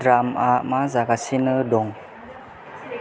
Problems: constant background noise